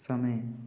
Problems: constant background noise